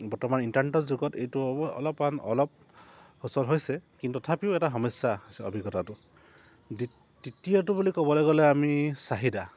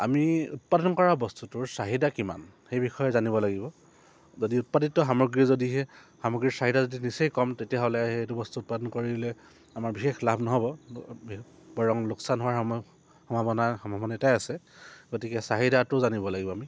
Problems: none marked